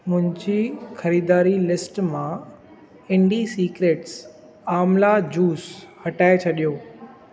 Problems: constant background noise, echo